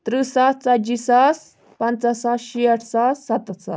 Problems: background sounds at intervals